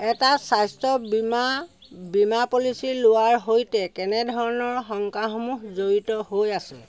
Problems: background sounds at intervals